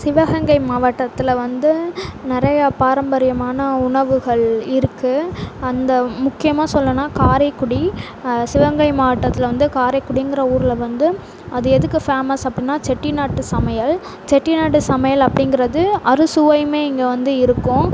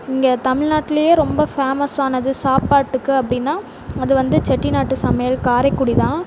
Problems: constant background noise